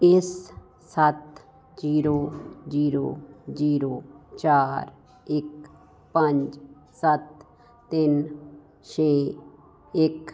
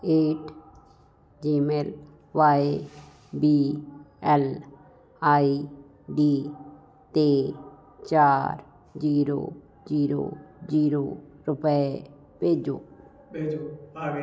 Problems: constant background noise